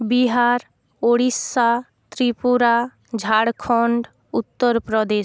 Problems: none marked